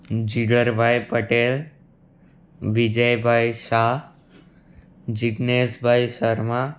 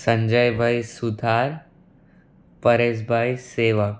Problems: none marked